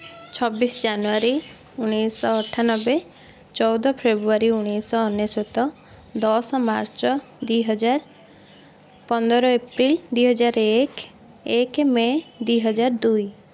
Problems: constant background noise